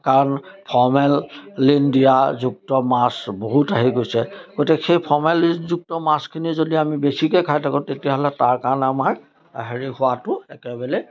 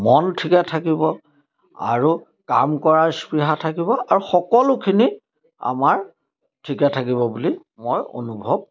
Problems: none marked